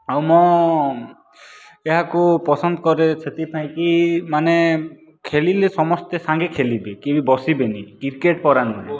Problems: background sounds at intervals